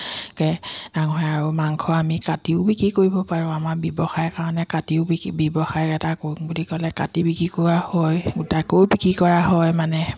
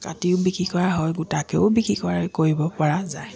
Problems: constant background noise, continuous background conversations